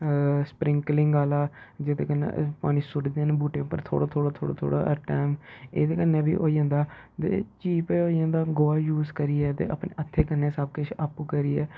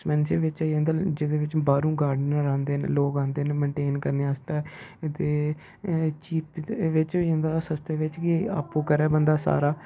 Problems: low volume